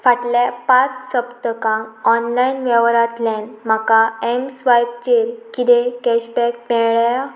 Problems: none marked